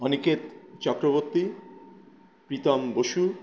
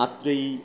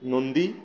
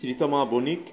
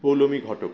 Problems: constant background noise